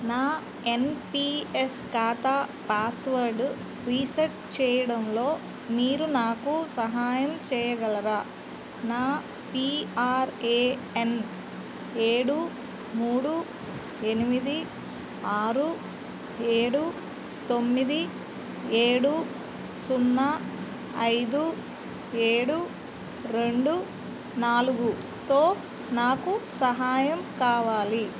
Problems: constant background noise